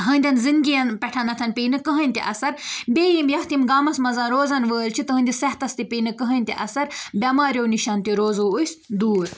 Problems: none marked